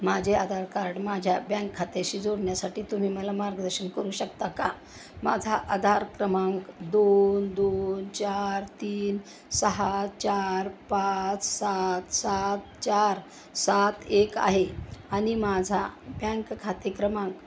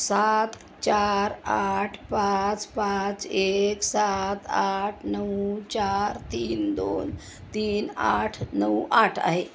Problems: none marked